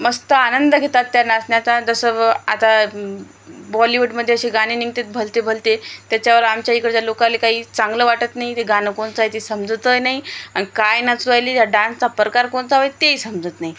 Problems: constant background noise